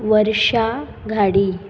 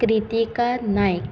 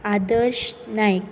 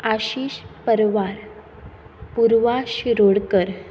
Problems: none marked